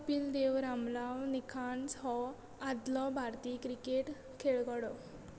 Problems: constant background noise